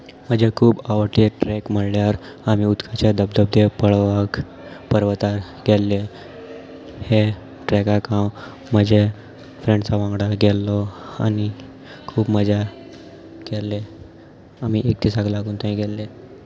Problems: constant background noise, continuous background conversations